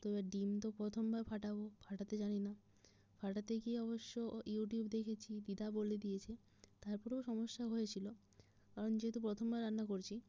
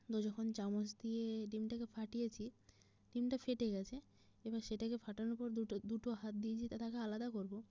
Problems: low volume